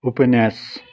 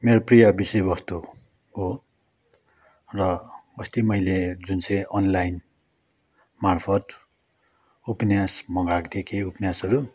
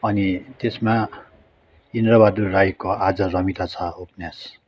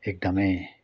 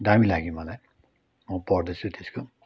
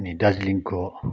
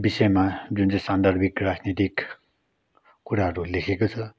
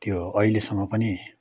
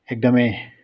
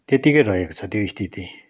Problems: none marked